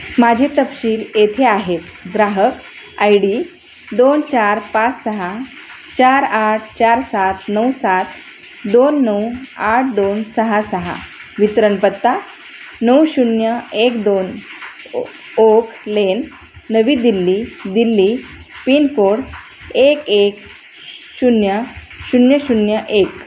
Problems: none marked